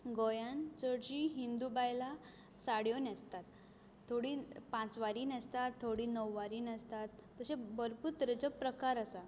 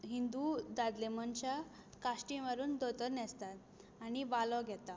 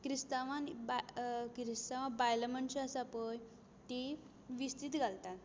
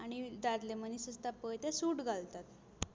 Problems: none marked